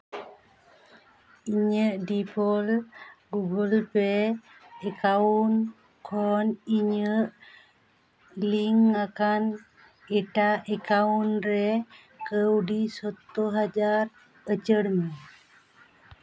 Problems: none marked